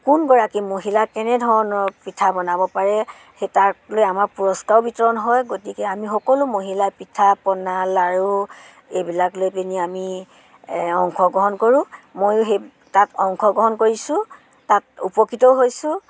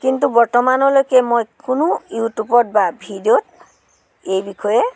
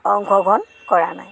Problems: background sounds at intervals